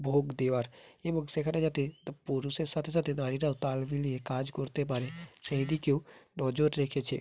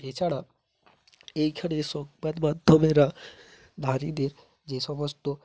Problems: constant background noise